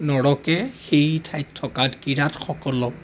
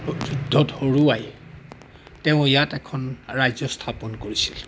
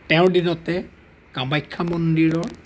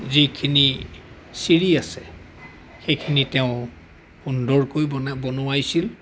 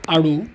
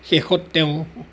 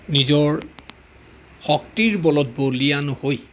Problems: none marked